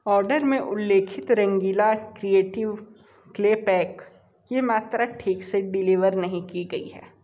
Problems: background sounds at intervals